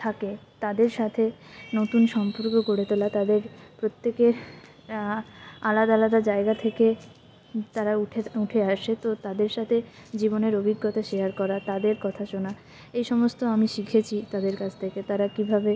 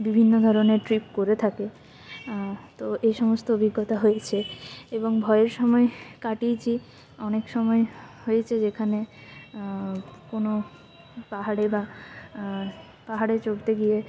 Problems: constant background noise, continuous background conversations